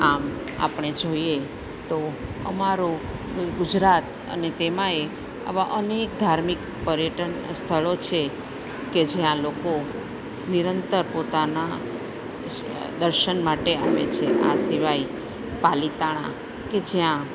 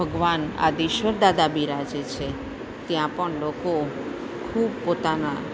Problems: none marked